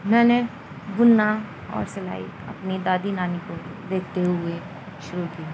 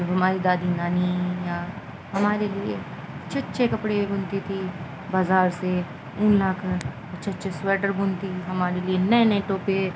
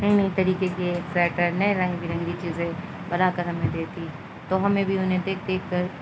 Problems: constant background noise, low volume